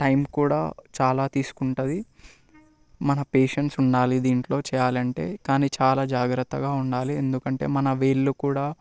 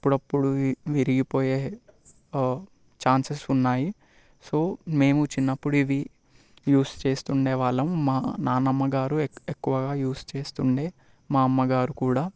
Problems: constant background noise